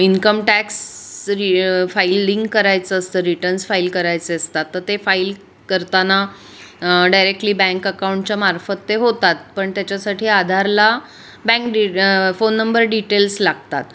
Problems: constant background noise